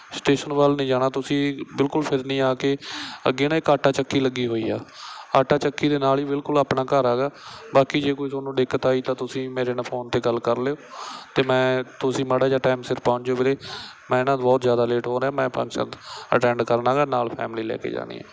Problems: background sounds at intervals